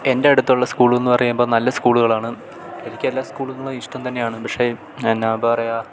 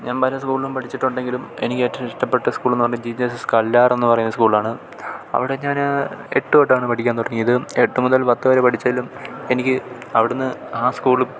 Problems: none marked